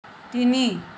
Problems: constant background noise